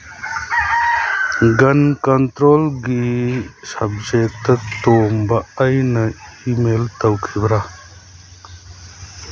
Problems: constant background noise